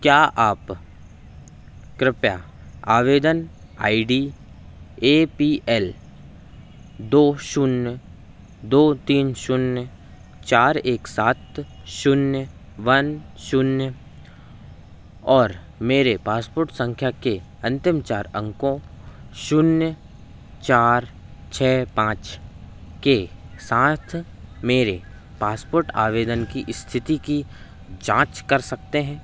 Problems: none marked